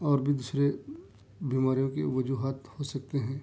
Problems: none marked